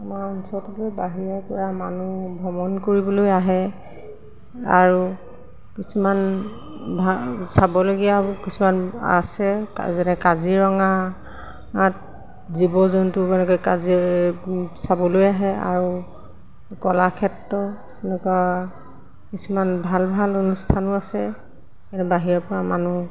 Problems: constant background noise, background conversations at intervals